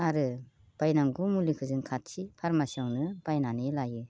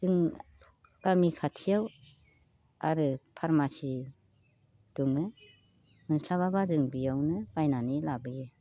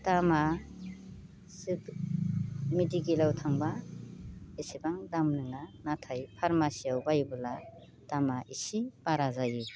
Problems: constant background noise